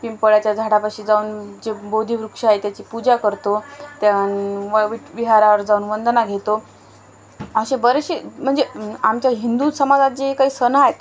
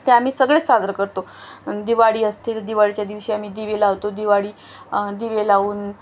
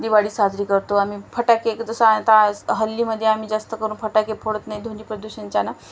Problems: none marked